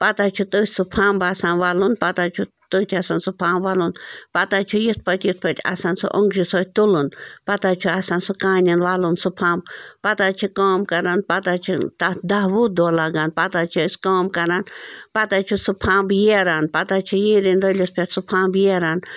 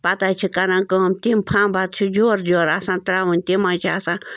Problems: none marked